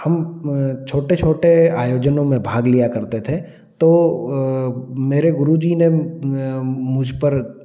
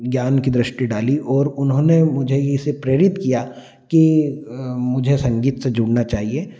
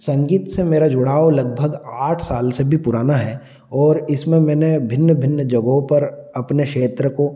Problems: none marked